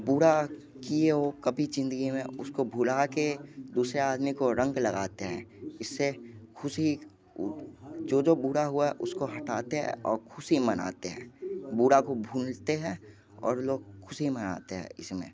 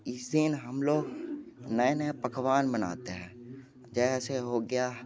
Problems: constant background noise